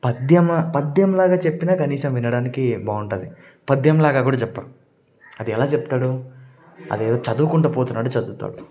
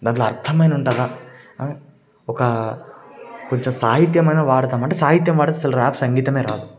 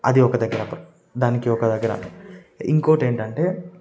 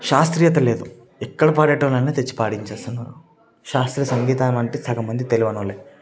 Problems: none marked